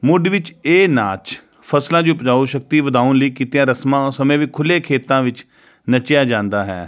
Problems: none marked